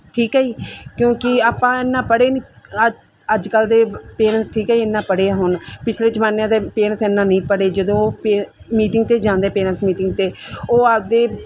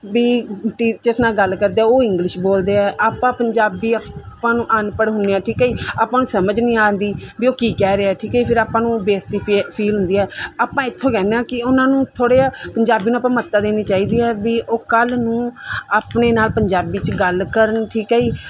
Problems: none marked